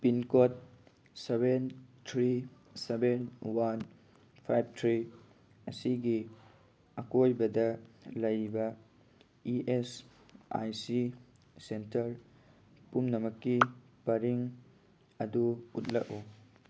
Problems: none marked